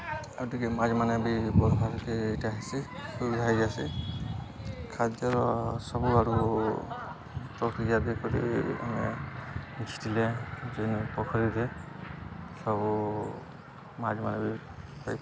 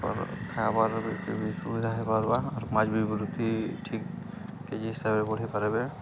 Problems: constant background noise, continuous background conversations